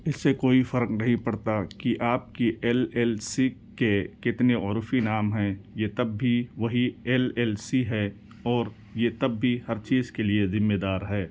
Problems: none marked